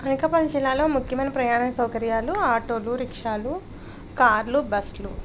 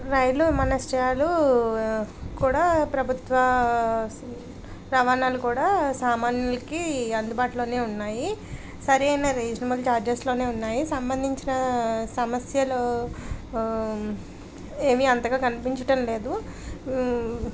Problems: background conversations at intervals